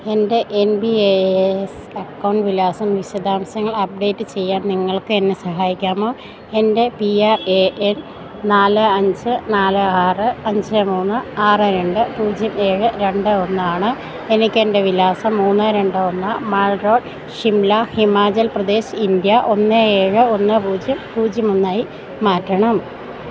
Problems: background sounds at intervals